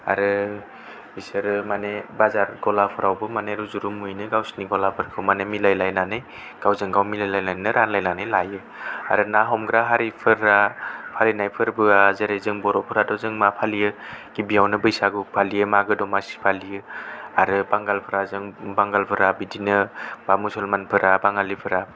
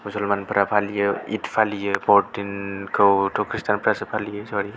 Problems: none marked